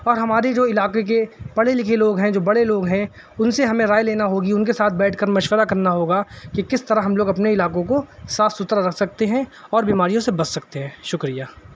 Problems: constant background noise